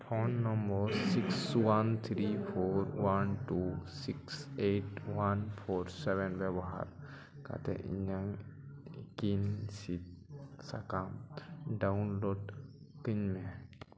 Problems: continuous background conversations, echo